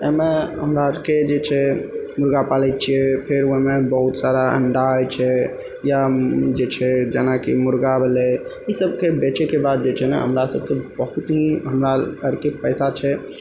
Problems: none marked